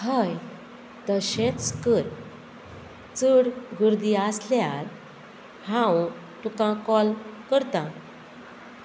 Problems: constant background noise